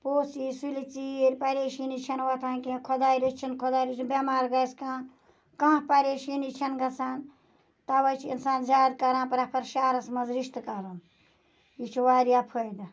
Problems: none marked